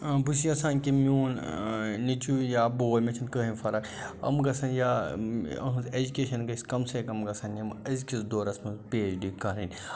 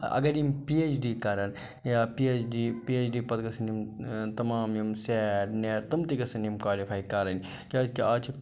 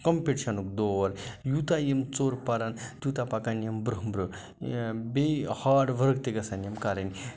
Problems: none marked